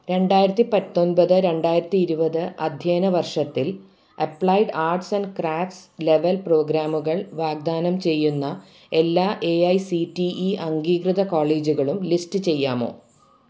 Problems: background sounds at intervals